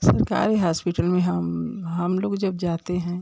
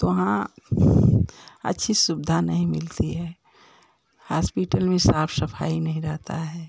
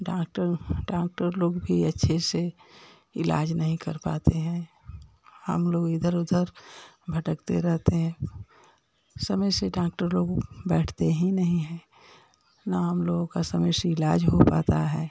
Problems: none marked